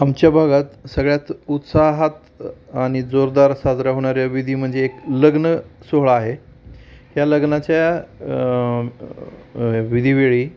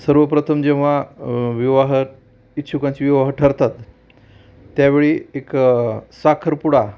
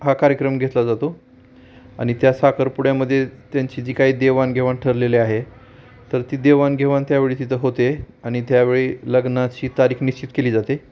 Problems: none marked